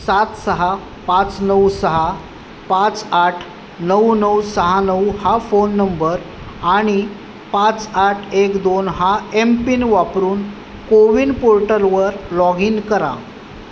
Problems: background sounds at intervals